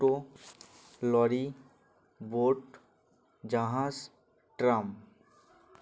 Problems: constant background noise, continuous background conversations